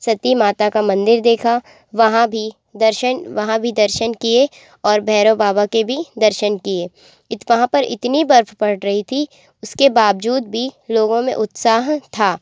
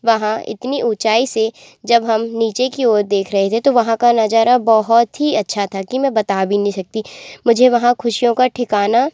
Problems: constant background noise